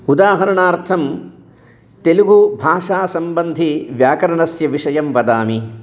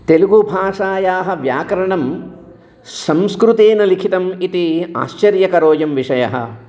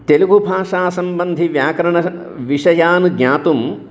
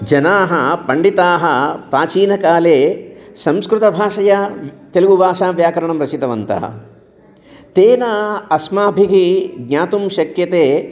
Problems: none marked